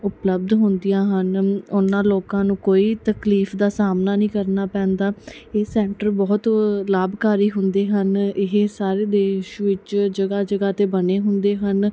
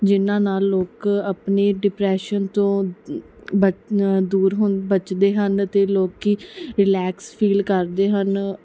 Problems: none marked